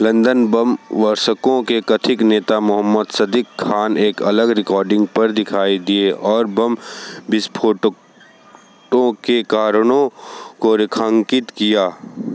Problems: constant background noise, background conversations at intervals